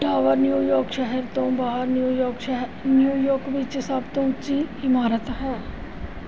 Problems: none marked